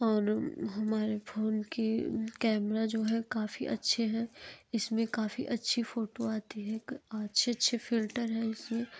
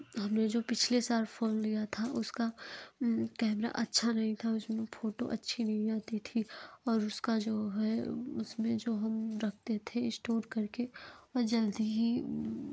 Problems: none marked